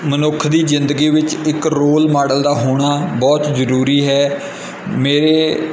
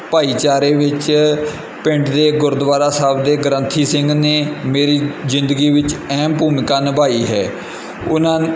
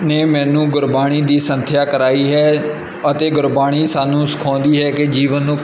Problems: background sounds at intervals